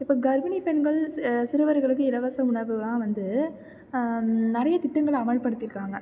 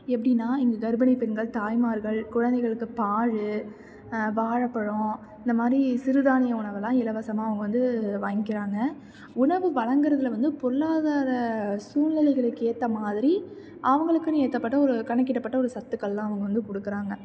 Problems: none marked